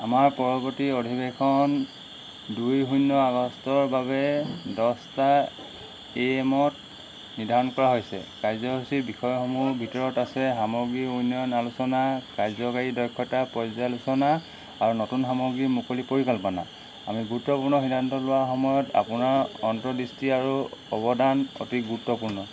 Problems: none marked